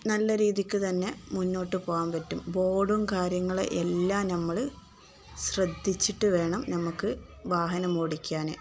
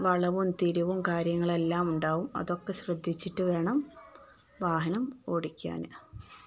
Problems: none marked